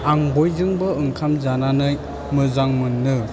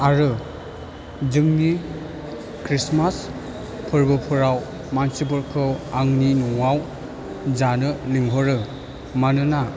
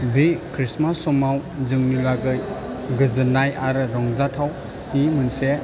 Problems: none marked